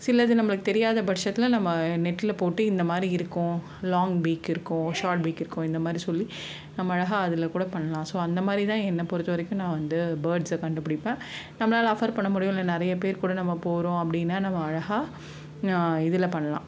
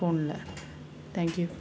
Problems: constant background noise